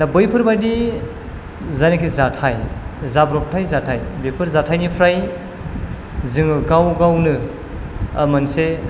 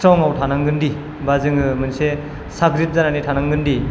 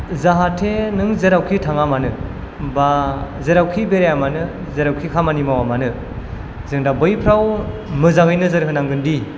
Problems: none marked